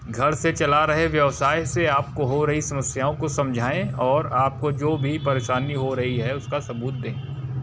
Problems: none marked